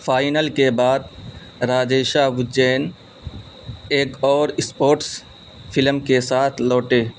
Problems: constant background noise